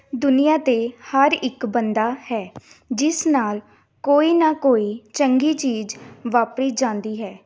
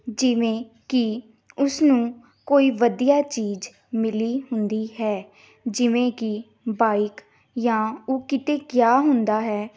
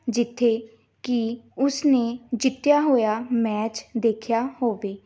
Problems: background sounds at intervals, background conversations at intervals